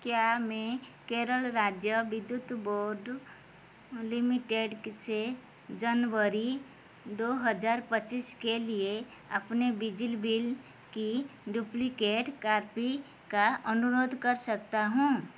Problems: constant background noise